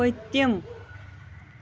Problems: none marked